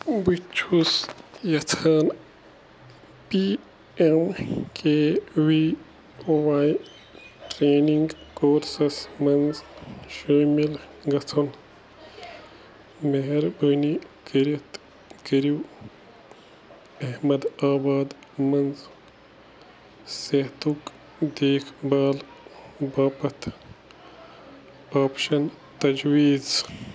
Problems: none marked